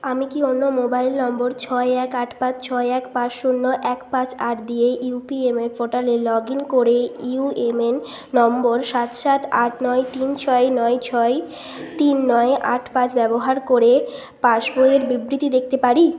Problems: constant background noise